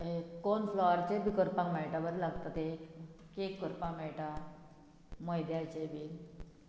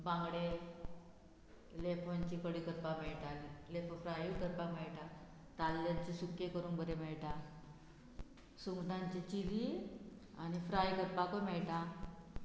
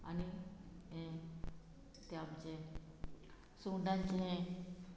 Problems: background sounds at intervals